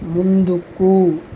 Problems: constant background noise